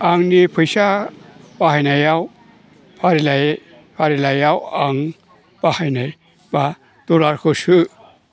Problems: constant background noise